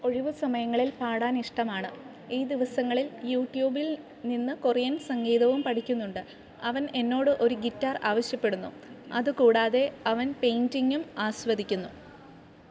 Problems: background sounds at intervals